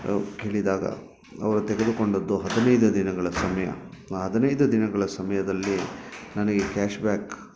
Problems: background sounds at intervals